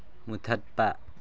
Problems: low volume